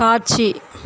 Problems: constant background noise